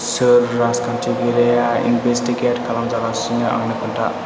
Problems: none marked